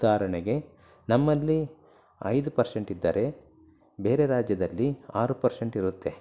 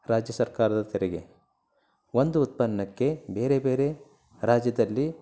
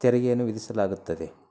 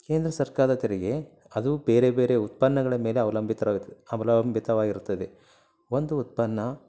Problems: low volume